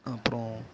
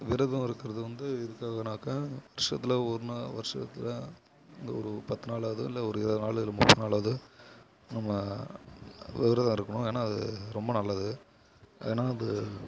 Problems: low volume